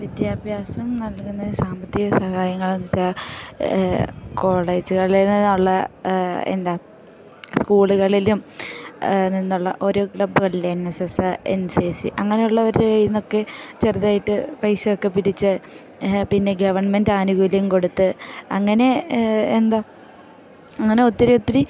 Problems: background sounds at intervals